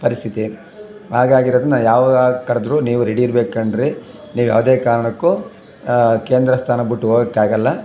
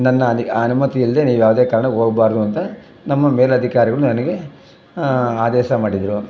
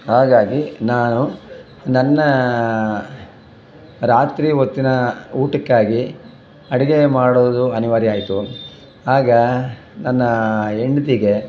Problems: background sounds at intervals